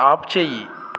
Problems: none marked